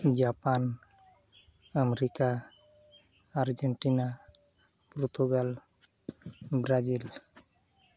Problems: none marked